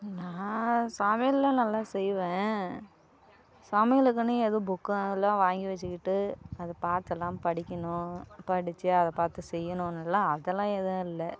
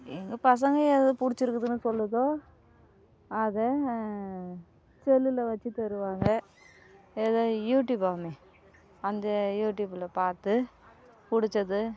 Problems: constant background noise